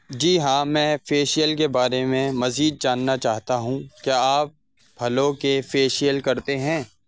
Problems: constant background noise